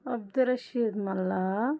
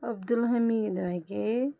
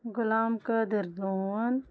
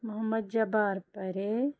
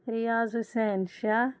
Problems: none marked